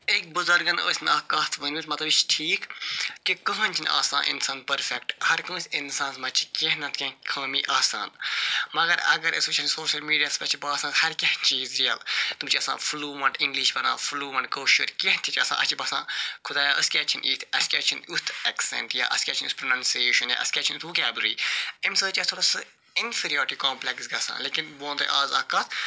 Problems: constant background noise